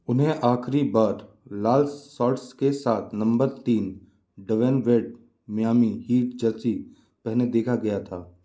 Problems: background sounds at intervals